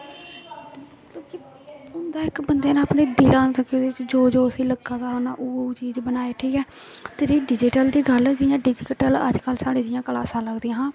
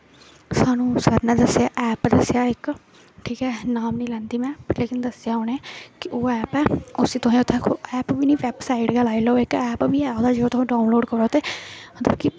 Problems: constant background noise